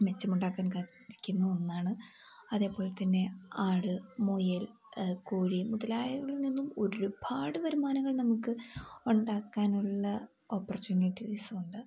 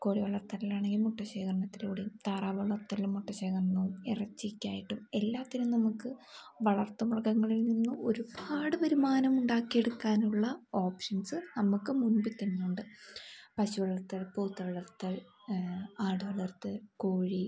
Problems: background sounds at intervals